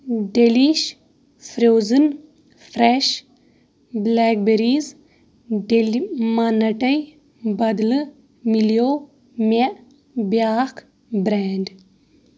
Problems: background sounds at intervals